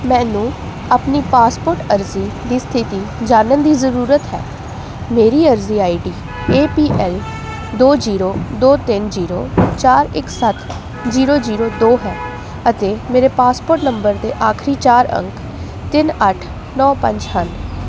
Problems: constant background noise